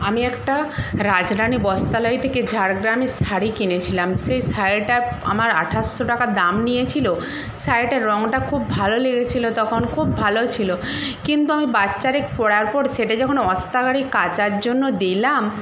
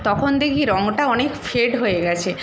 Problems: constant background noise